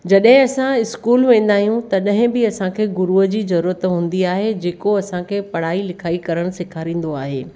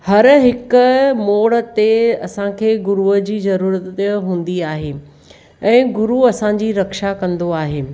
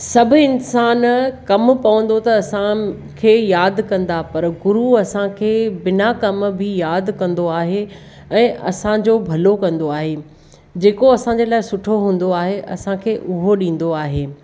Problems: none marked